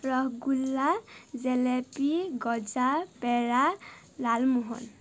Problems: none marked